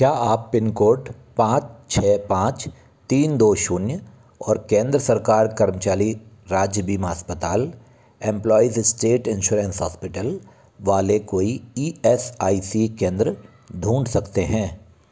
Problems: none marked